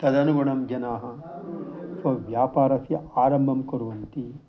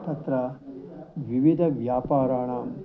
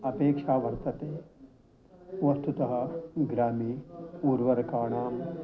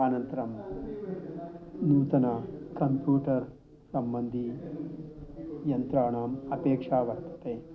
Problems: none marked